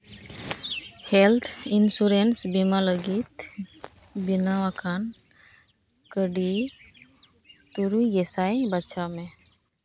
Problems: background sounds at intervals